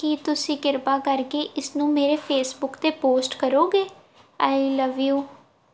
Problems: none marked